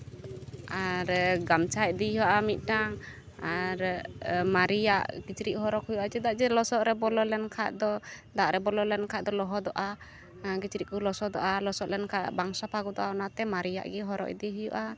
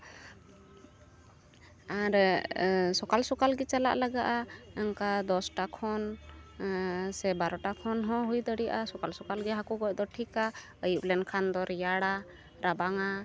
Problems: none marked